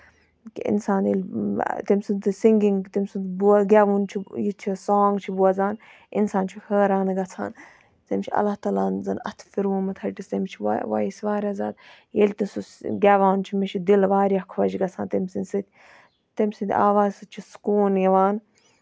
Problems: background sounds at intervals